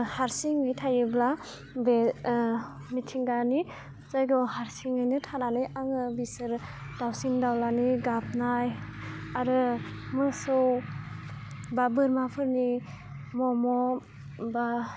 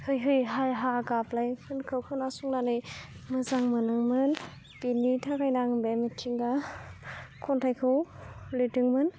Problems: low volume